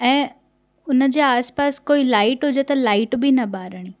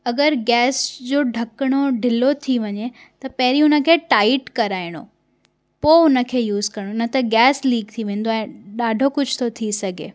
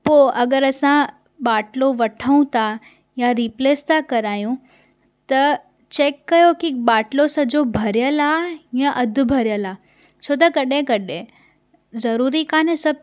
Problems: none marked